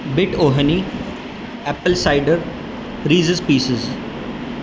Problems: constant background noise